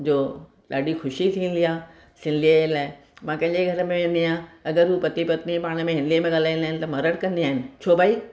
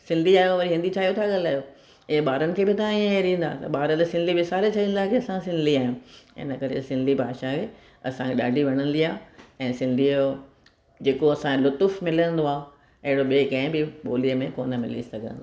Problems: none marked